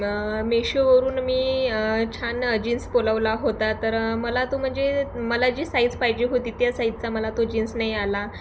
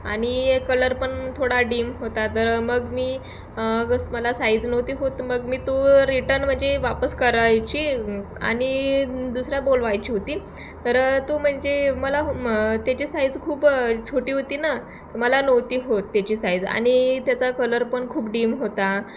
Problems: background sounds at intervals